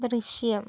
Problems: none marked